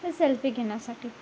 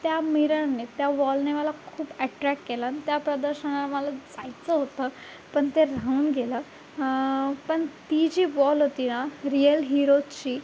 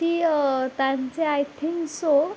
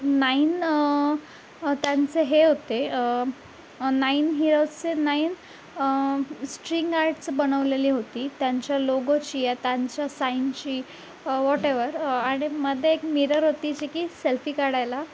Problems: none marked